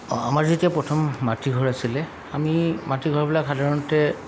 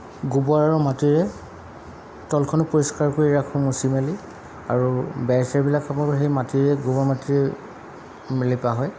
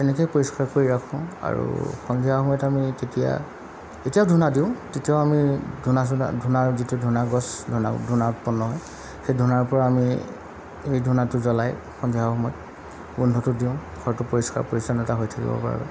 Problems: constant background noise